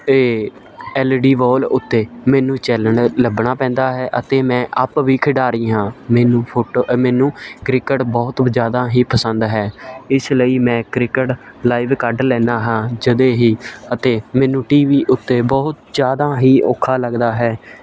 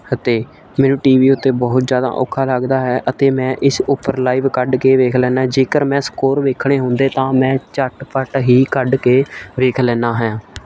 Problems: none marked